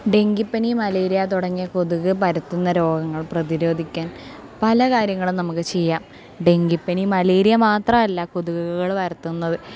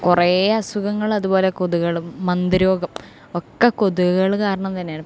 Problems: none marked